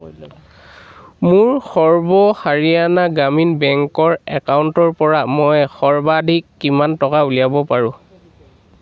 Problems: background sounds at intervals